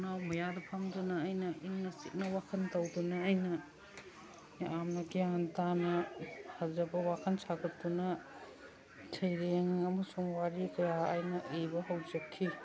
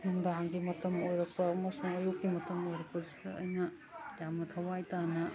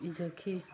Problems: background sounds at intervals, background conversations at intervals